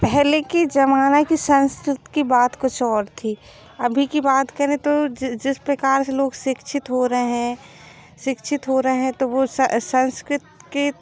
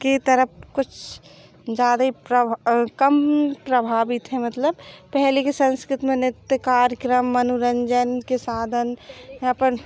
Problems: background sounds at intervals